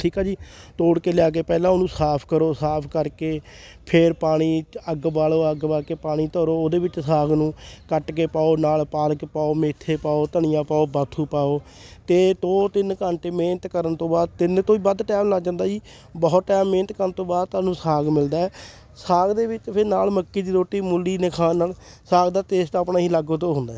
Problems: background sounds at intervals, background conversations at intervals